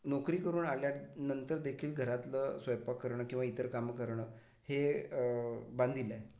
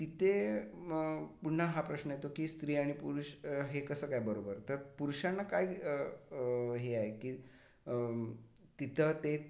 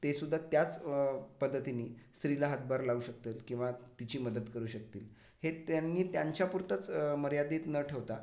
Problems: background sounds at intervals